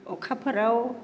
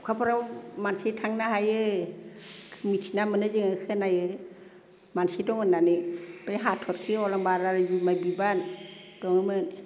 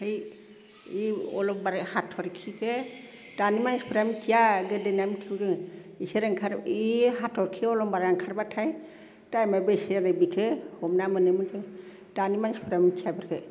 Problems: none marked